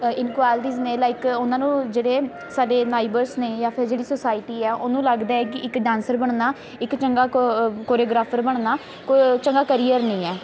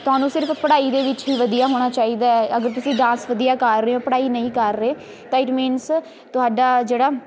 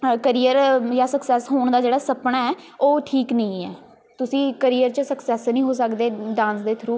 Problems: constant background noise, background conversations at intervals